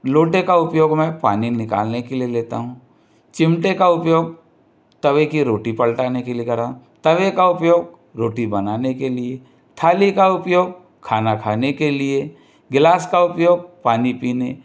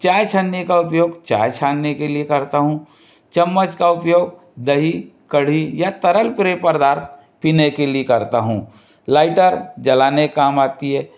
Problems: background sounds at intervals